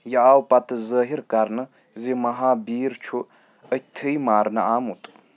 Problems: background sounds at intervals